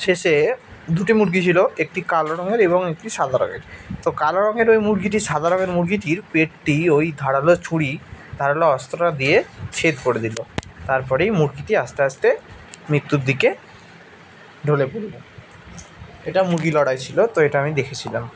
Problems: constant background noise